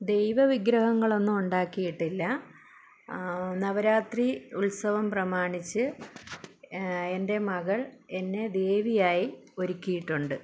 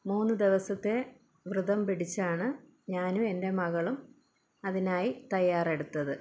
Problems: low volume